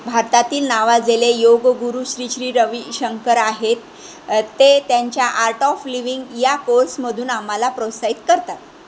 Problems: constant background noise